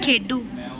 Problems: none marked